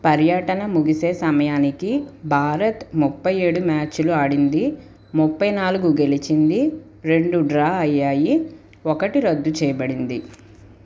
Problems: constant background noise